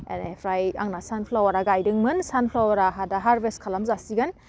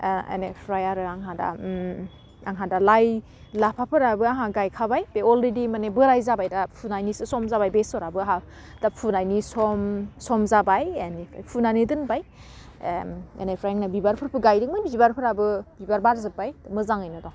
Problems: none marked